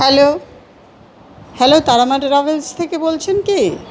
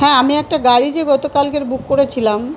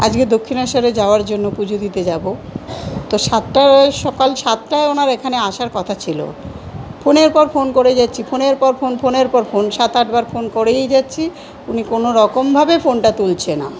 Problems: none marked